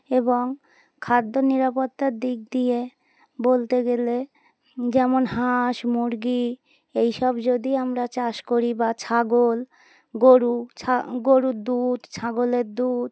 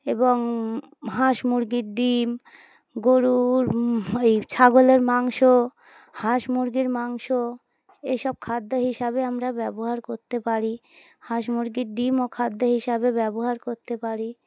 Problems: background sounds at intervals